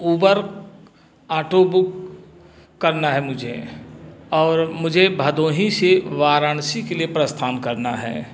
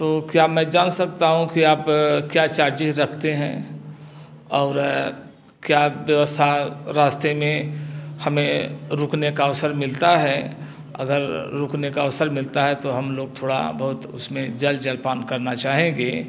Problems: constant background noise, background conversations at intervals, echo